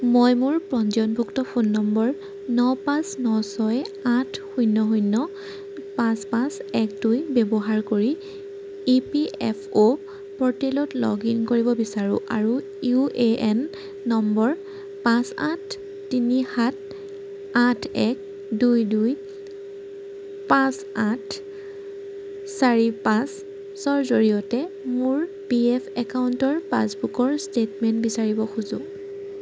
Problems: constant background noise